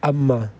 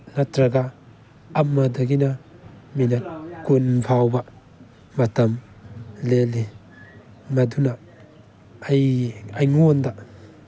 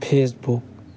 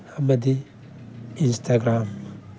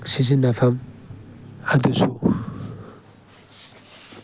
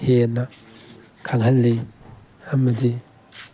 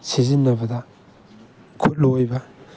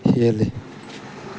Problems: background sounds at intervals